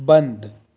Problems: constant background noise